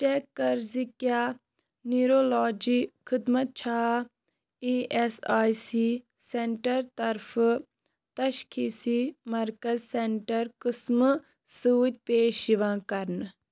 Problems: none marked